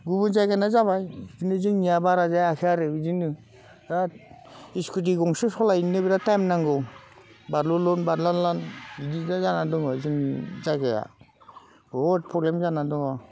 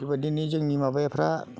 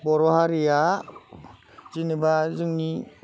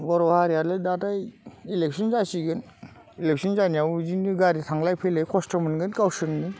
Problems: constant background noise